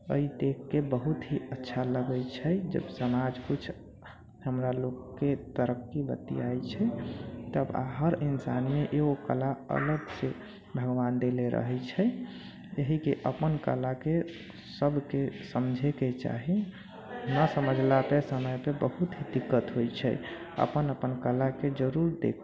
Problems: background sounds at intervals, low volume